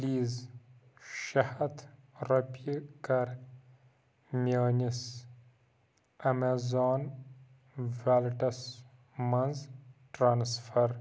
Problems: none marked